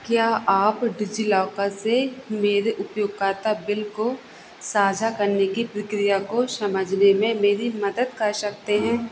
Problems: constant background noise